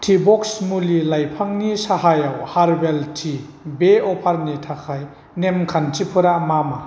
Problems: none marked